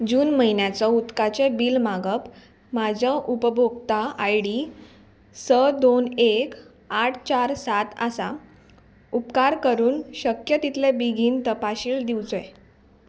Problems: background sounds at intervals